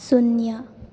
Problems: none marked